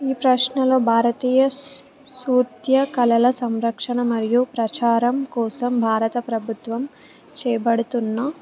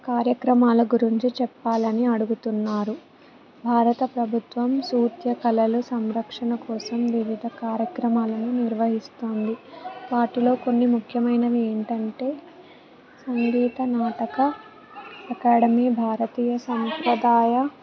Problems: background sounds at intervals, background conversations at intervals